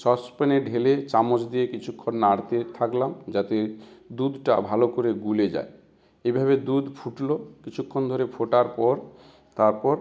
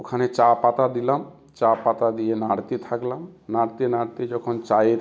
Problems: constant background noise